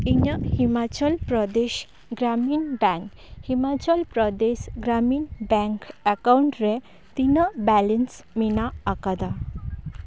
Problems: background sounds at intervals